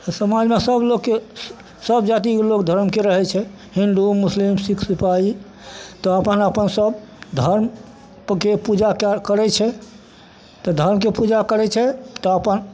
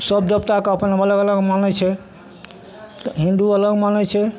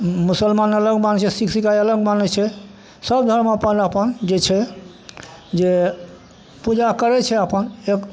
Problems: none marked